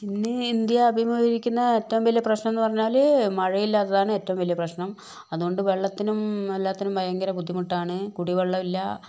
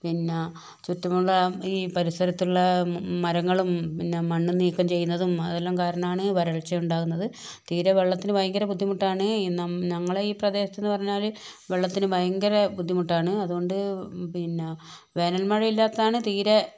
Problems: none marked